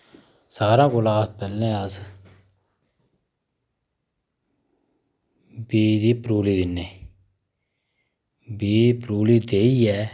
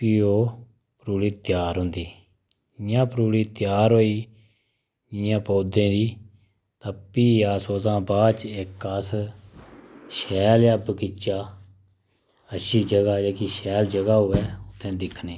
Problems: none marked